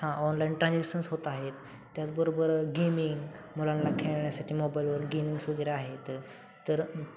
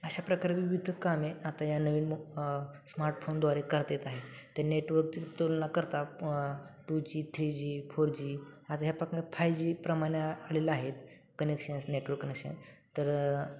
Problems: constant background noise, continuous background conversations